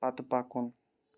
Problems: constant background noise